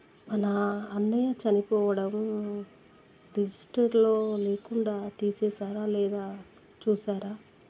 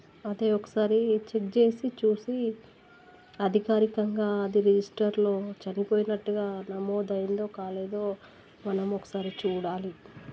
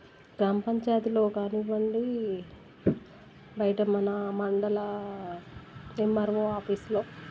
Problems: low volume